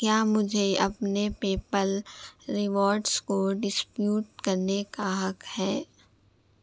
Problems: constant background noise, low volume